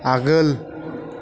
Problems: none marked